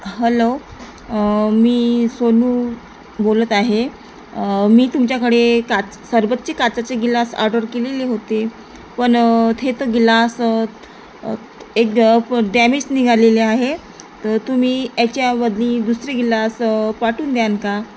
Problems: constant background noise